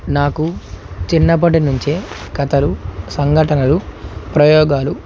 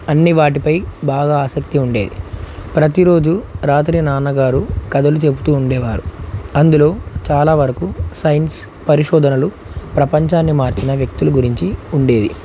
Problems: constant background noise